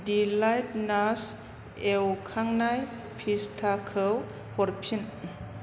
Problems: constant background noise